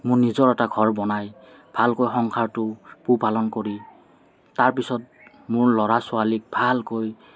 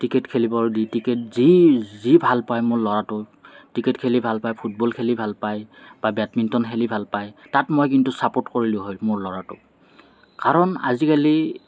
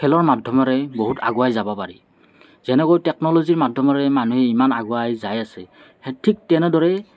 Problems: constant background noise, background conversations at intervals